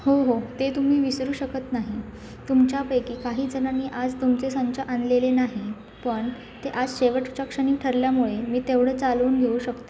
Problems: constant background noise, background conversations at intervals